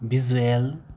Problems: none marked